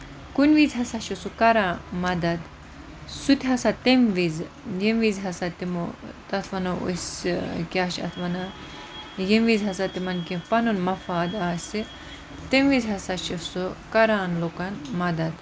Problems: constant background noise